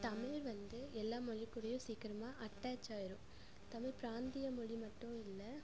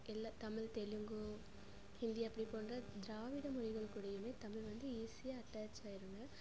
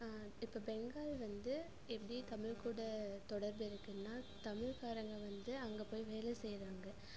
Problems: constant background noise